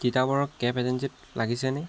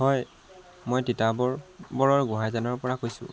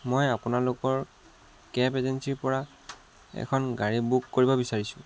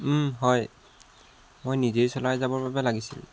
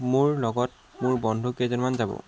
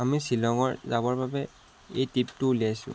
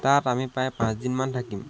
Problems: constant background noise